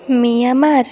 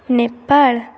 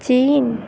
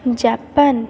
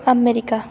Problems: none marked